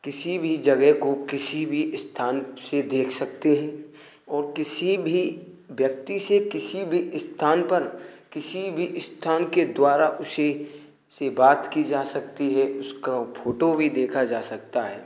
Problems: constant background noise